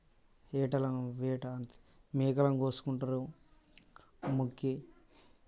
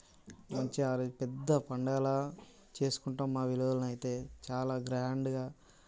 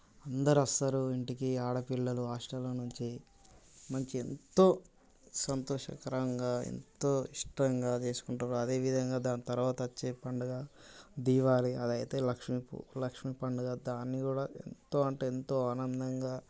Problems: constant background noise